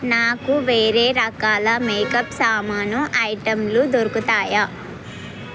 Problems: none marked